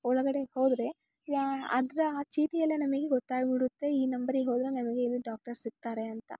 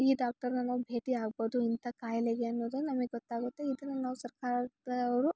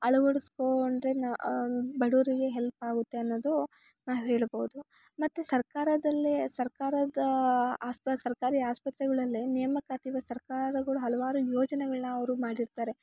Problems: none marked